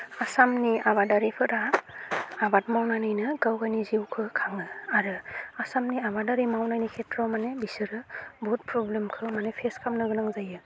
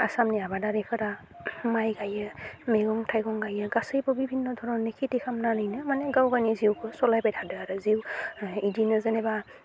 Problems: low volume